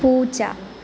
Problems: constant background noise, low volume